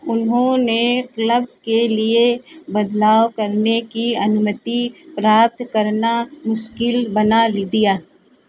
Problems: none marked